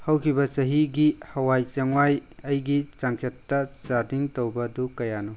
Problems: none marked